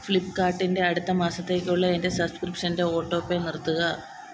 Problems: constant background noise